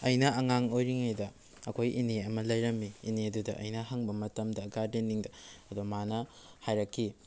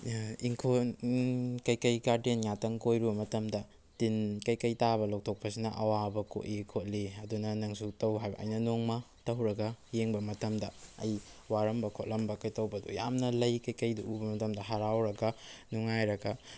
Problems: none marked